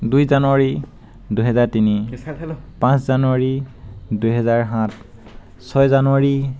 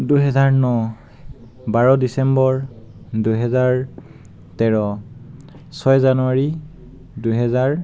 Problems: background conversations at intervals